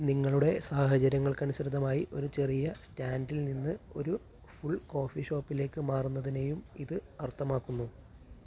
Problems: none marked